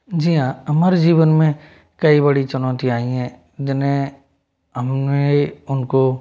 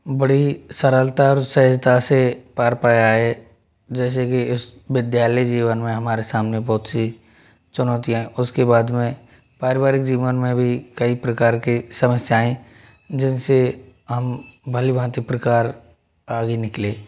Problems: background sounds at intervals